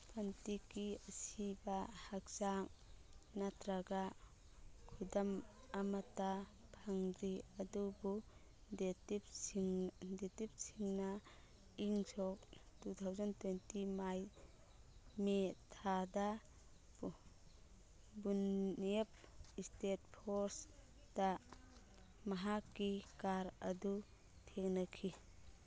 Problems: background sounds at intervals, background conversations at intervals